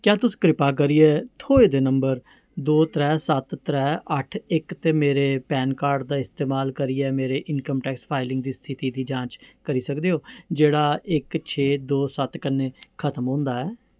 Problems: background sounds at intervals